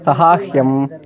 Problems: background conversations at intervals